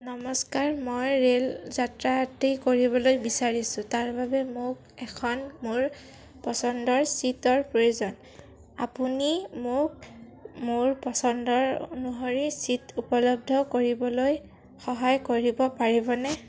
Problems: background sounds at intervals